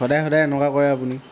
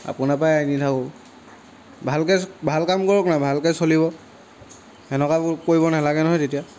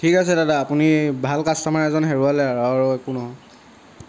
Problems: background sounds at intervals